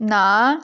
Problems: none marked